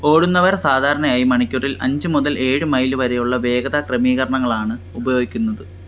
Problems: constant background noise